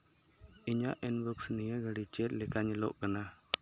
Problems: constant background noise